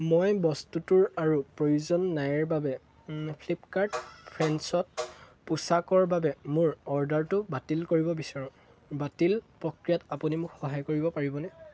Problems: constant background noise